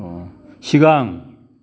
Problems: none marked